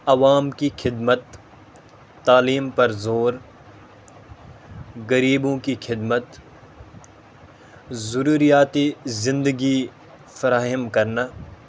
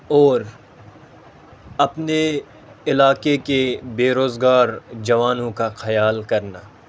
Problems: constant background noise